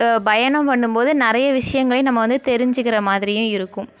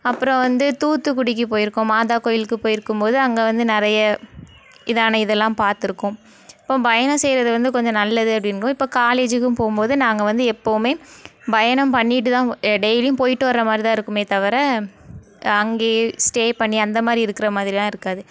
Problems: none marked